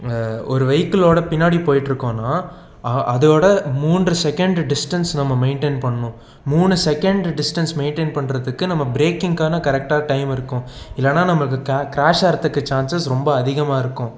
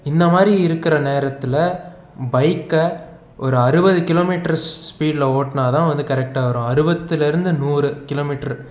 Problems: none marked